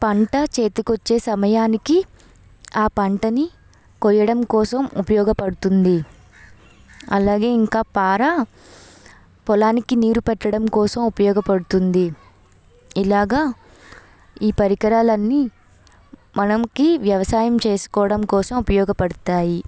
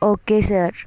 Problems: background sounds at intervals, background conversations at intervals